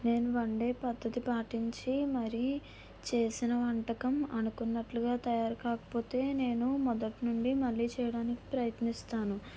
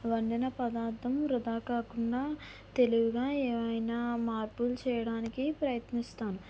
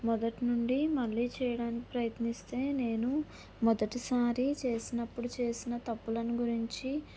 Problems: none marked